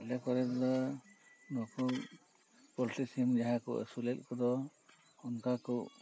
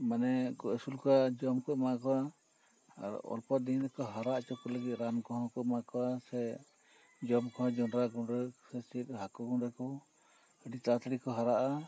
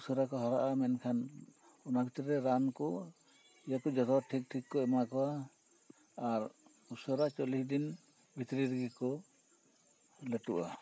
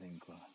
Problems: constant background noise